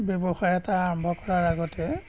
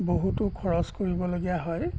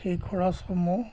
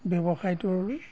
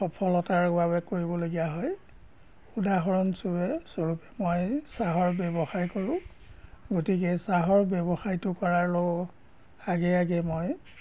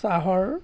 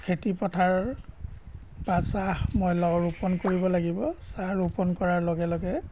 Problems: background sounds at intervals